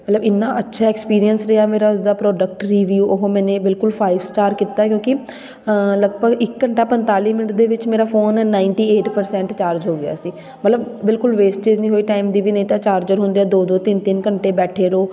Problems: background sounds at intervals, continuous background conversations